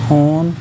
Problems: constant background noise